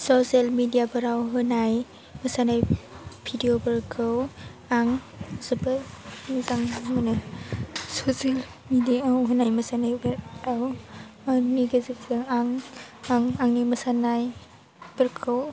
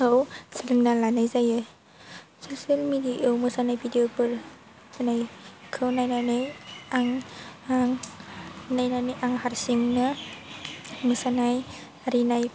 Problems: low volume